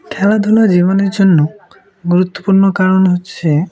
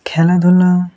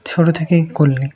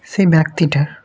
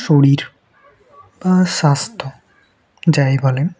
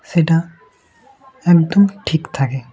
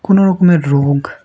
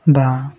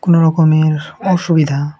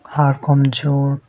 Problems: none marked